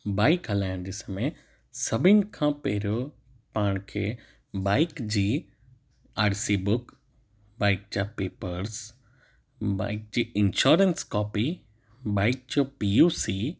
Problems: none marked